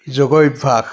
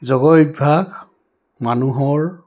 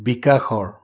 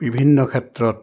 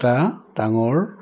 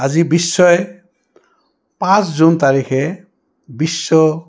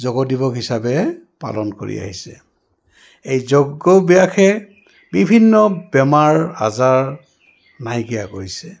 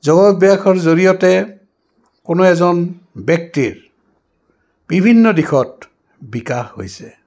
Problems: background conversations at intervals